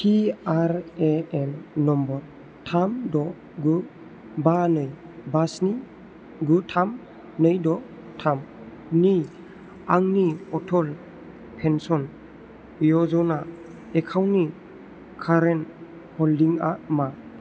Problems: constant background noise